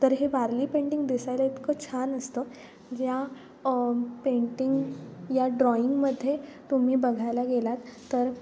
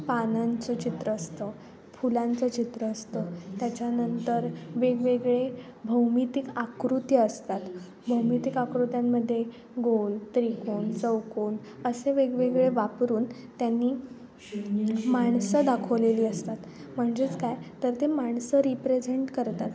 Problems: constant background noise